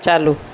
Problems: constant background noise